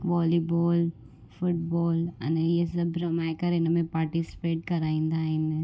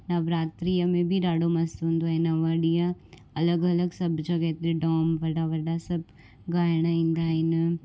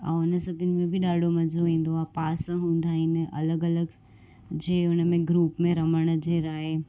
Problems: constant background noise